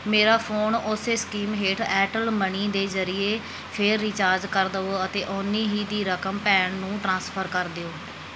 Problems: background sounds at intervals